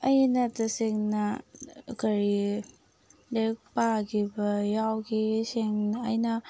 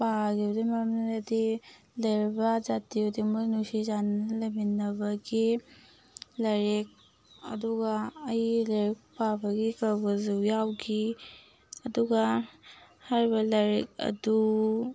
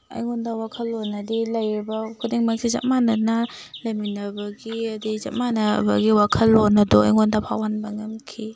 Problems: background sounds at intervals